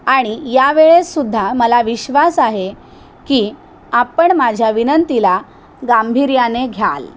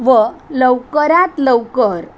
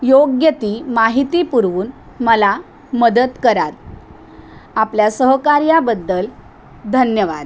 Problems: constant background noise